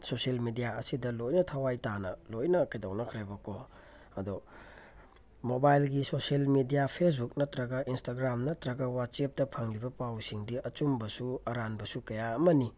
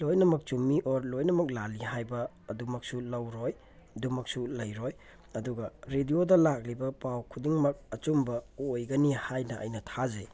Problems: none marked